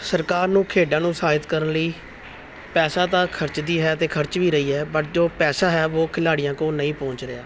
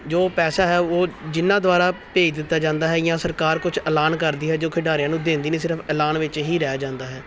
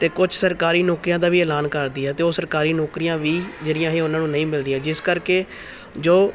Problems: none marked